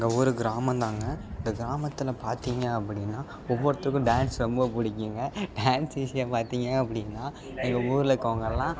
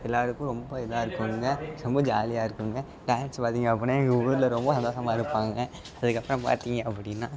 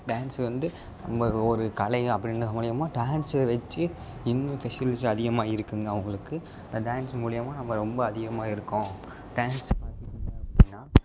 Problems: background sounds at intervals, low volume